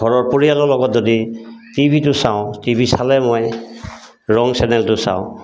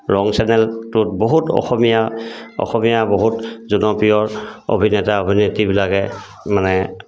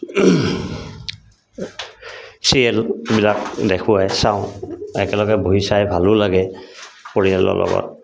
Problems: constant background noise